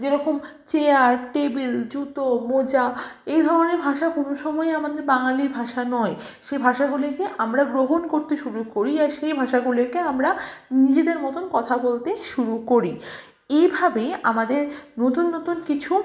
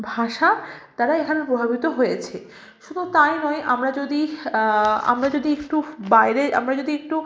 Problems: constant background noise